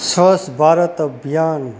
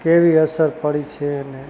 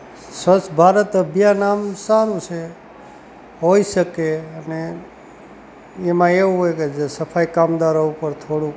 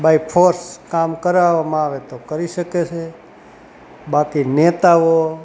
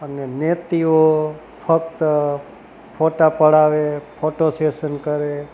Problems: constant background noise